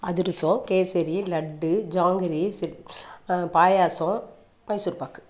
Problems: none marked